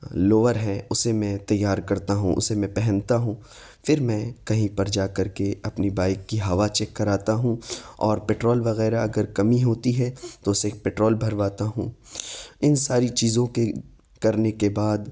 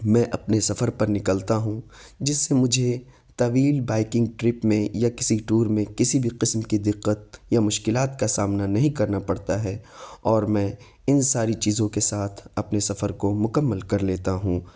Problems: none marked